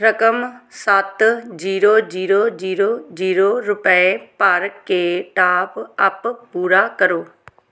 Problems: none marked